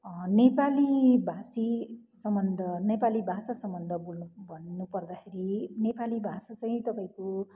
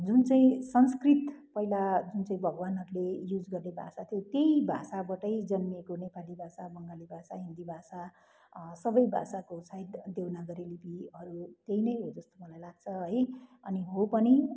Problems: none marked